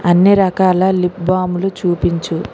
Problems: constant background noise